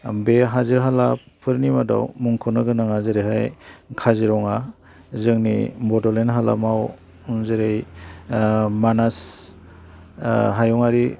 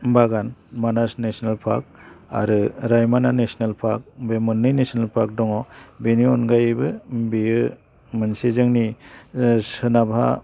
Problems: none marked